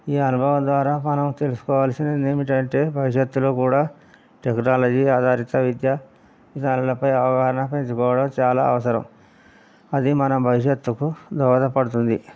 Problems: none marked